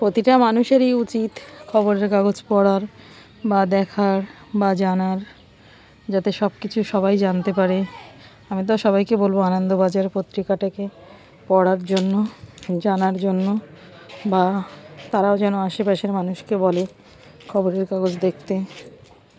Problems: background sounds at intervals